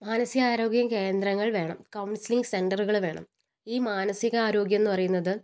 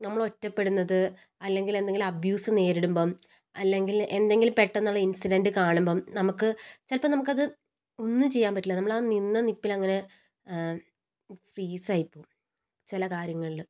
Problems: none marked